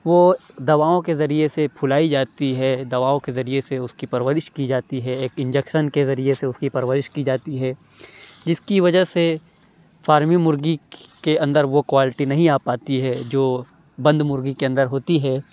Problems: background sounds at intervals, background conversations at intervals